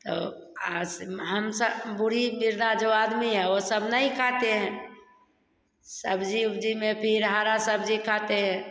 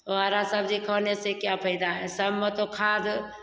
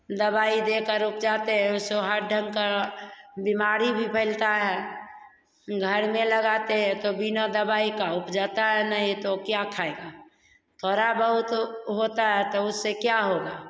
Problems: none marked